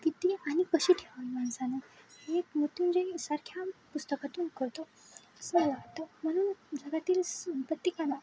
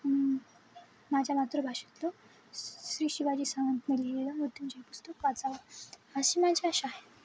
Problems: none marked